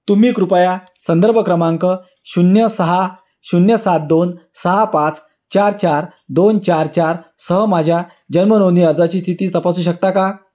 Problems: none marked